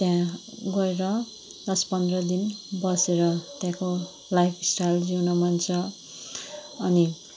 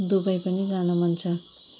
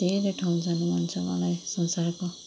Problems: background sounds at intervals